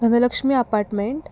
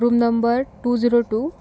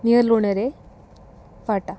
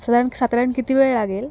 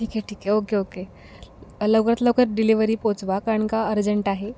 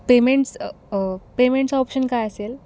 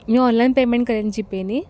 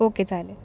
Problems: background sounds at intervals, background conversations at intervals